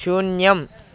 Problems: constant background noise